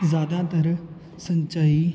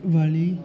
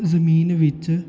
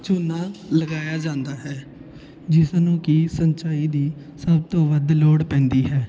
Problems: constant background noise, continuous background conversations